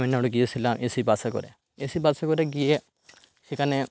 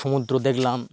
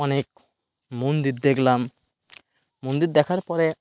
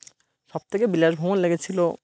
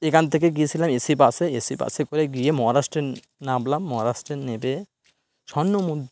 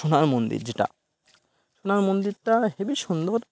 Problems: background sounds at intervals